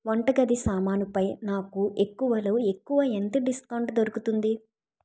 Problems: none marked